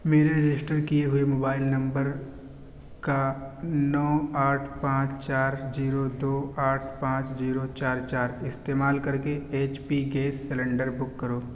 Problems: constant background noise